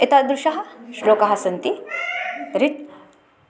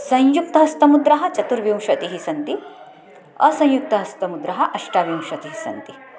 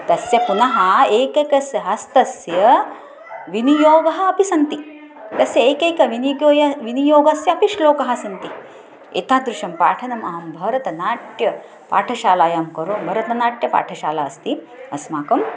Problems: continuous background conversations